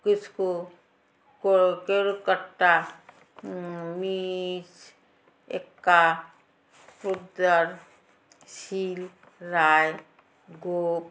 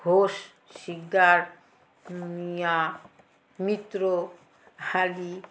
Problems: constant background noise, background conversations at intervals